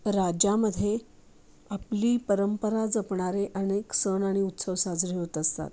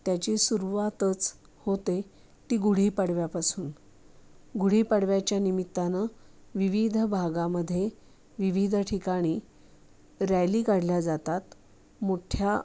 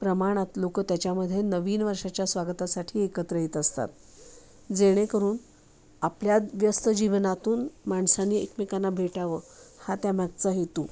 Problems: constant background noise